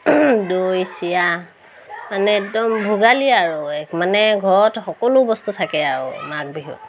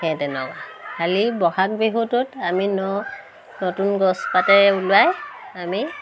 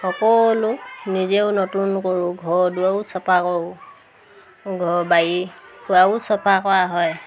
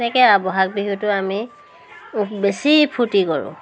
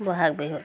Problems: constant background noise, background conversations at intervals